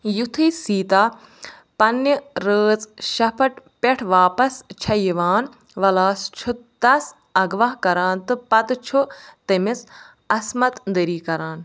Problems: none marked